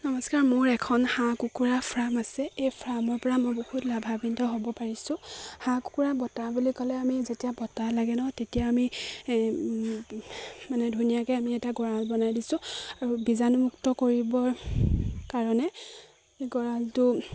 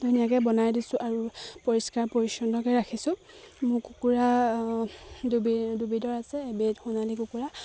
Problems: constant background noise, background conversations at intervals